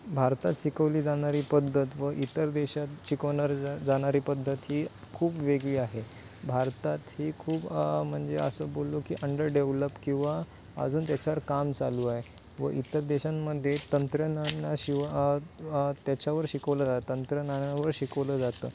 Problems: constant background noise